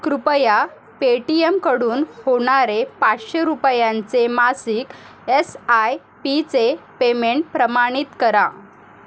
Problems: constant background noise